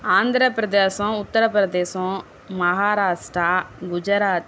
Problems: constant background noise